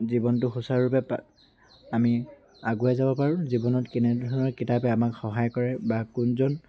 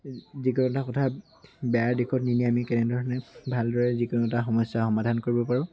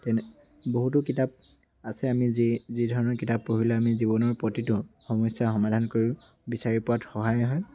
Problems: constant background noise, background conversations at intervals